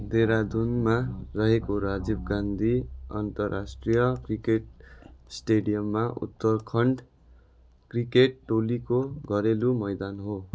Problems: background sounds at intervals